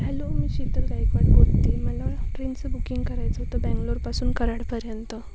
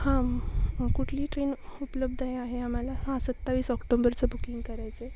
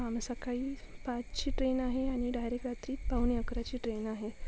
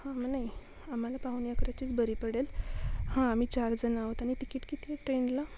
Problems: constant background noise, background conversations at intervals